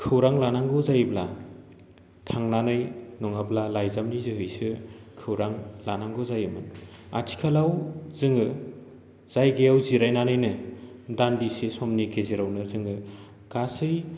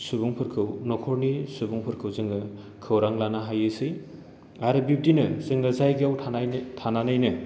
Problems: none marked